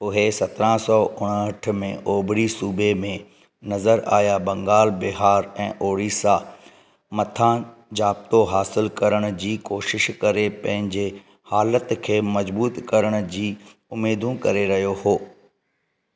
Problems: none marked